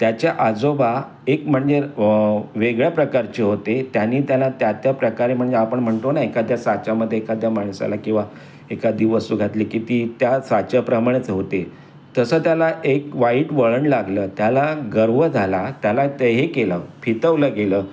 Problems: constant background noise